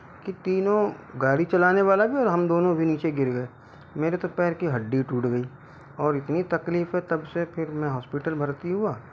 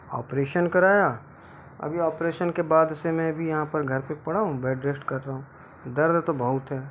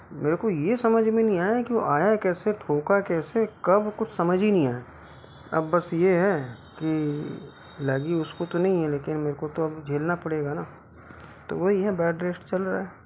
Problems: constant background noise